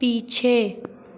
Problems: constant background noise, echo